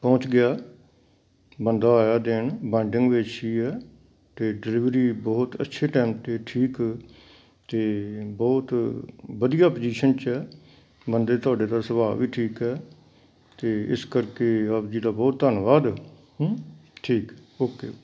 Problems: background sounds at intervals